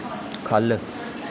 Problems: constant background noise